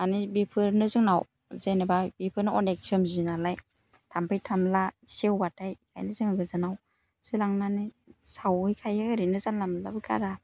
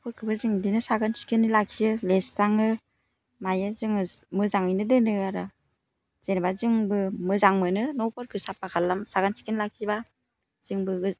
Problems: constant background noise